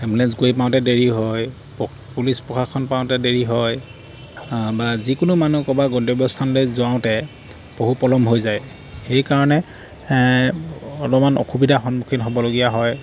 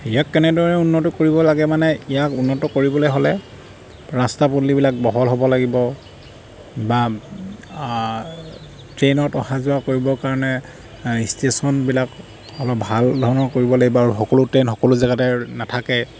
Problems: background sounds at intervals